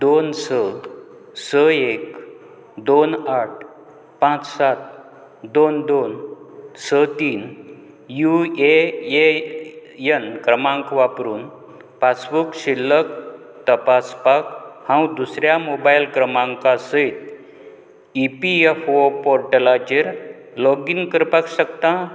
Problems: constant background noise